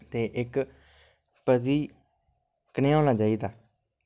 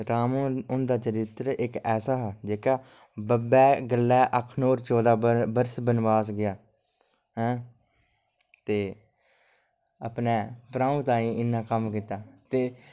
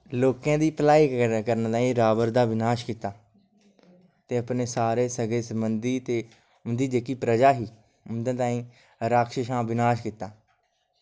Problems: low volume